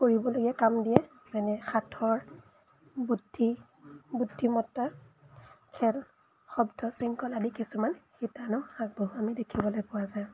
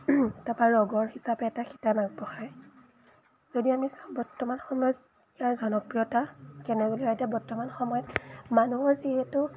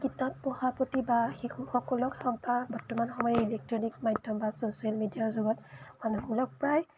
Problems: background sounds at intervals